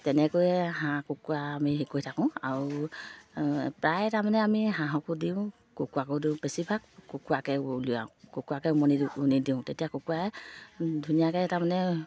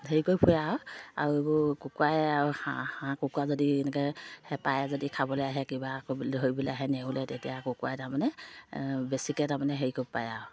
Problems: low volume